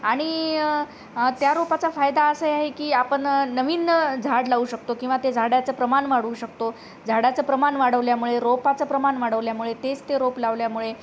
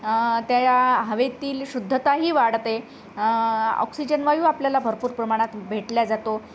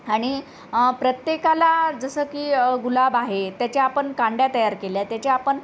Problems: constant background noise